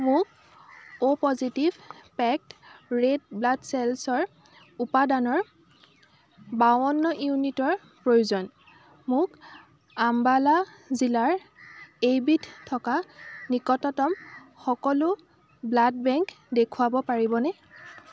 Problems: constant background noise